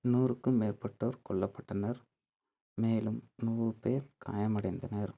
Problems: low volume